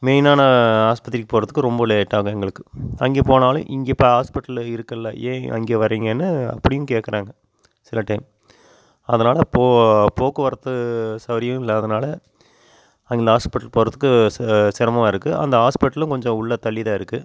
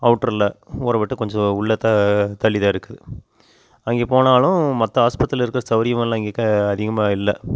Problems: constant background noise